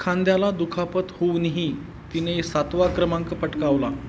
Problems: none marked